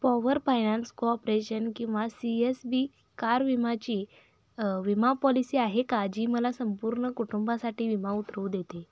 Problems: constant background noise, low volume